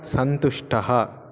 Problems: continuous background conversations